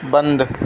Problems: constant background noise